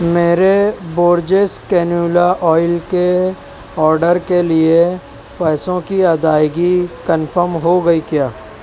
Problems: constant background noise